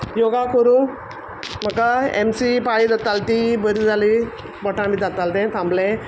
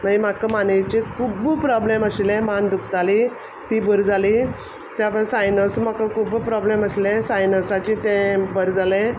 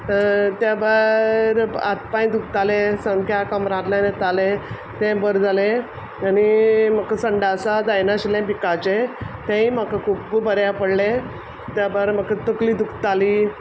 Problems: background sounds at intervals